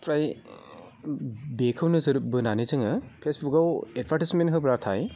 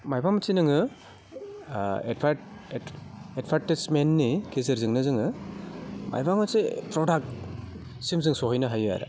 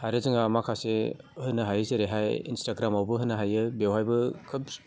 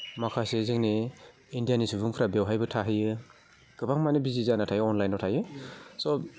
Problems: low volume